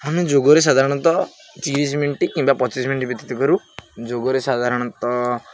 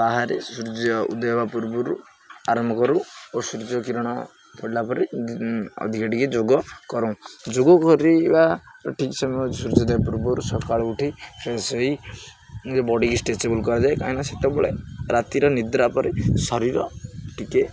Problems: none marked